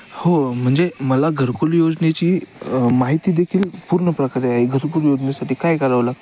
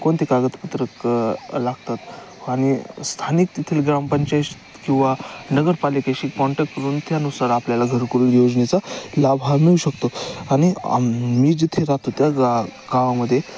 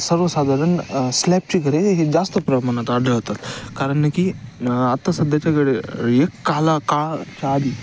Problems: constant background noise